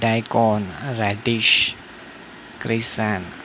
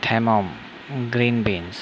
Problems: constant background noise